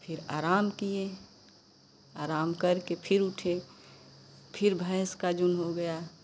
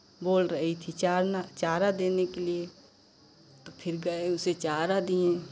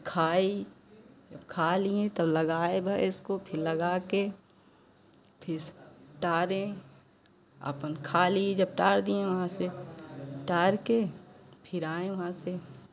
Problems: constant background noise